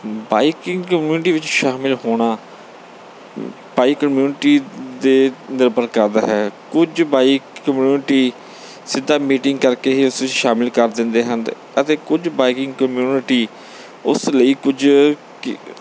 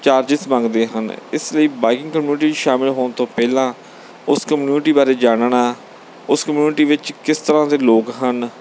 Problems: background sounds at intervals